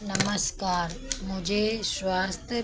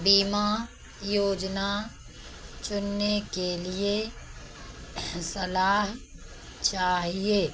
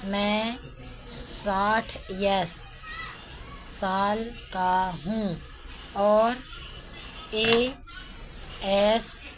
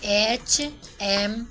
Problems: none marked